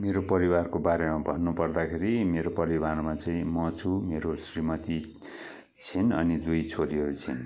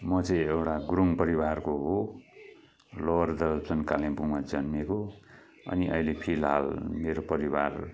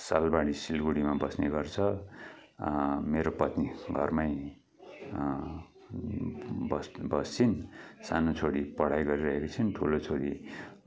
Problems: background conversations at intervals